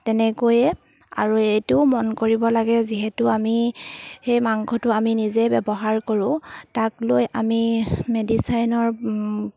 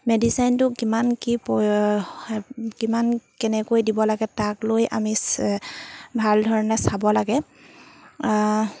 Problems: background sounds at intervals